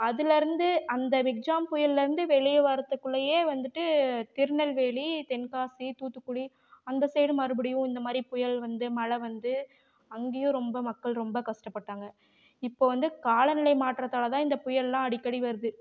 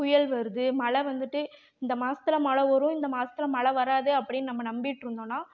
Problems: none marked